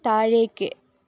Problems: none marked